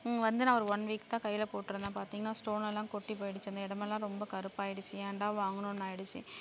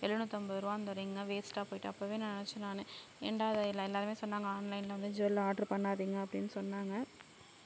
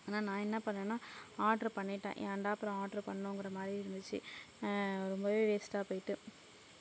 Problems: low volume